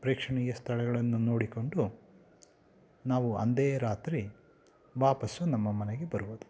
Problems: background sounds at intervals